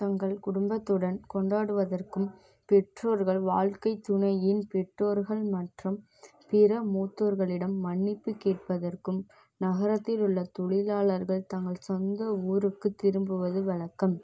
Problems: none marked